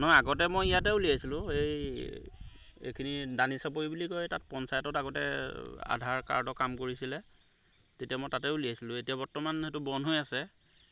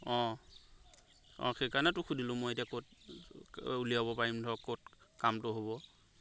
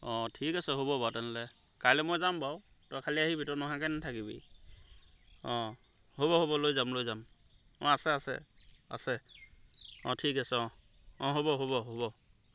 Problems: background sounds at intervals